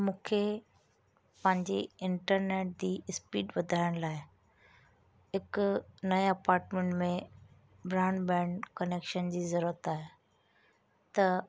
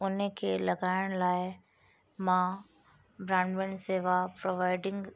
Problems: constant background noise